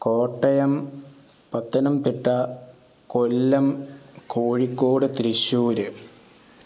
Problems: none marked